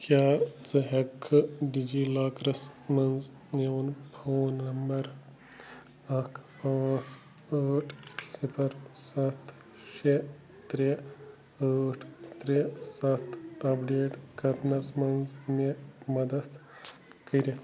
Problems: constant background noise